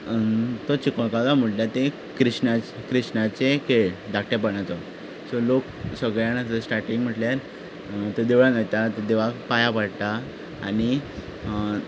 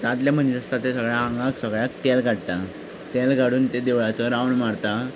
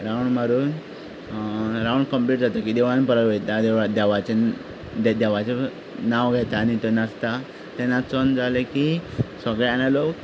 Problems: background sounds at intervals